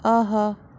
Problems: constant background noise